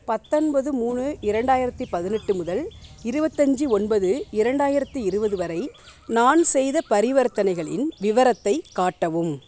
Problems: background sounds at intervals